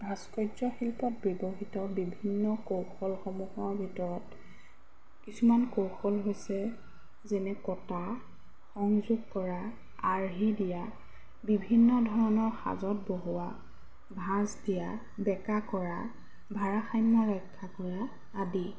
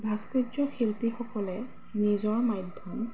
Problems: background sounds at intervals